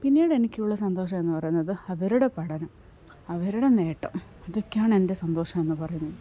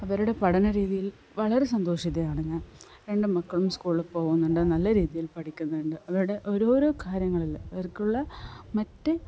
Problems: low volume